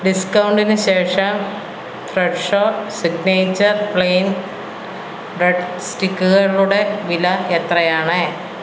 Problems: constant background noise